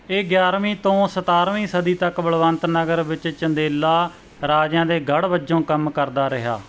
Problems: none marked